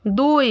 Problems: none marked